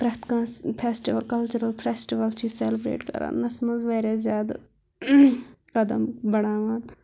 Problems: constant background noise